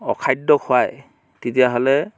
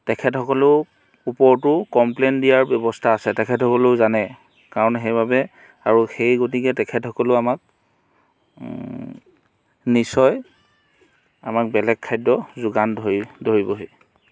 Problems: background sounds at intervals